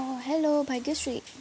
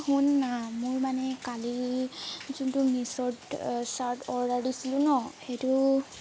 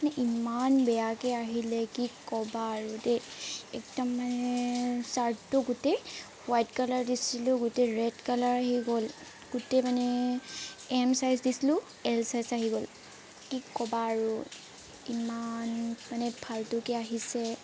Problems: constant background noise